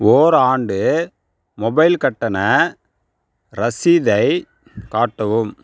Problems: none marked